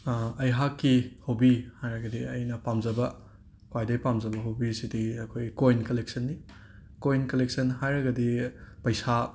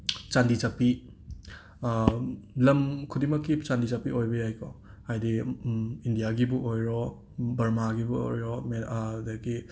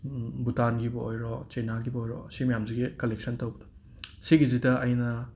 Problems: none marked